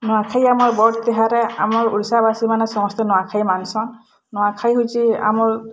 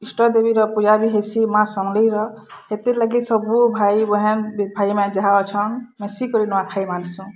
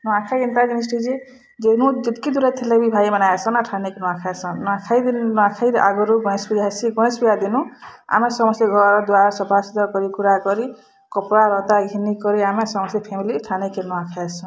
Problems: background sounds at intervals